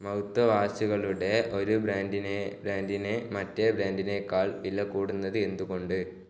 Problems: low volume